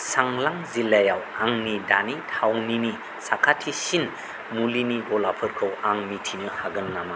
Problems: constant background noise